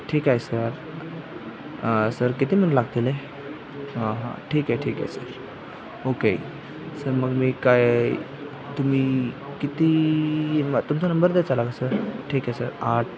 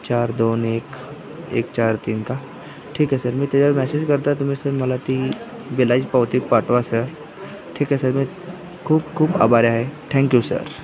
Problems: constant background noise, background conversations at intervals